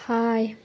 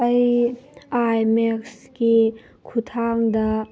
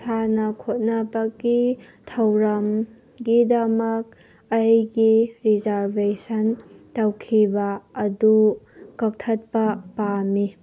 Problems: none marked